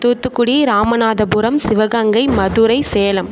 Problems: none marked